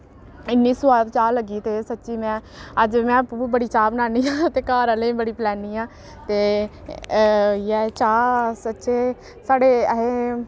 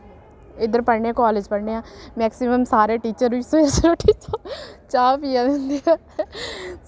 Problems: constant background noise